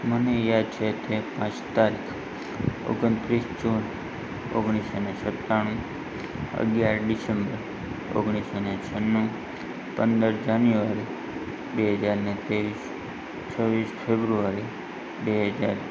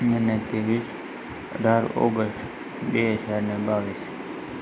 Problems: constant background noise